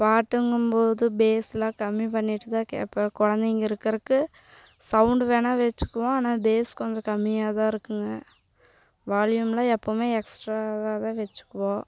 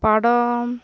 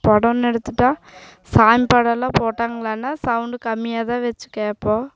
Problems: none marked